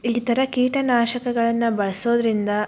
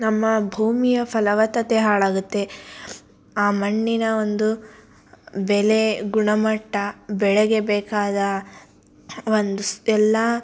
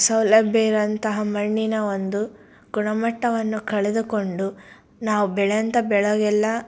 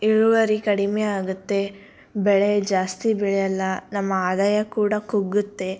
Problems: none marked